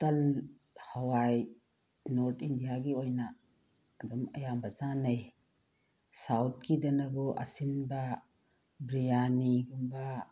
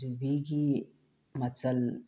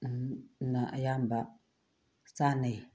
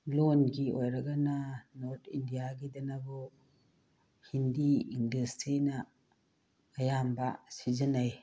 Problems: background sounds at intervals, low volume